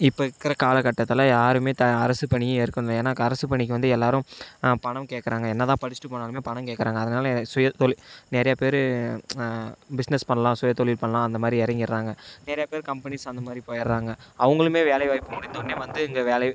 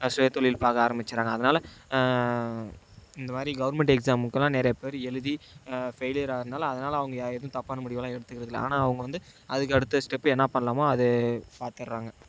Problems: background sounds at intervals